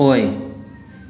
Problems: constant background noise